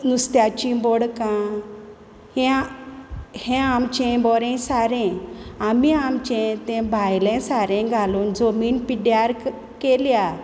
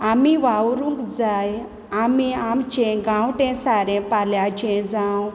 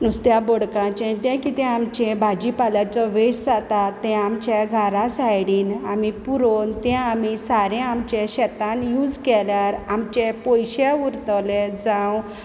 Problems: constant background noise